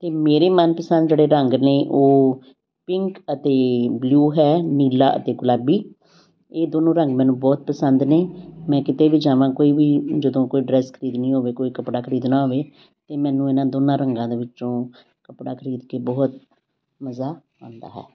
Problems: background sounds at intervals